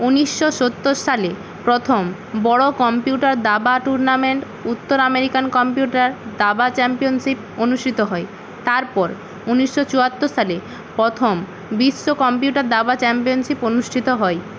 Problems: constant background noise